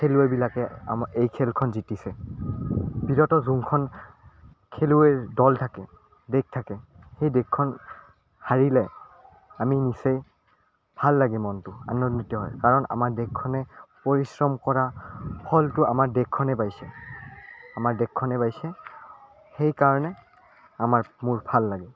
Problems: none marked